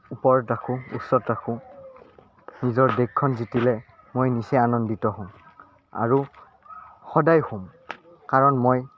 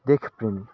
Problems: none marked